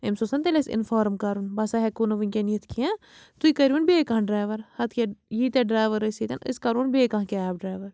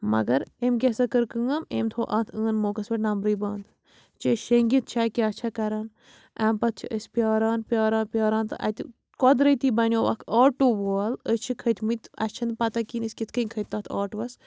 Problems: background sounds at intervals